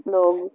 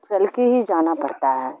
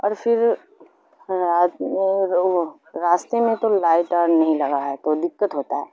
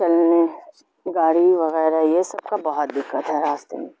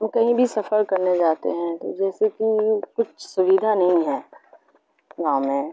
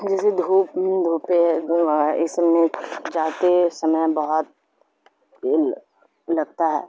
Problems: constant background noise